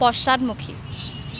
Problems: background sounds at intervals